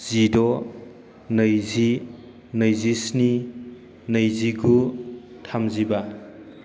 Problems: none marked